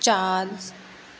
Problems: constant background noise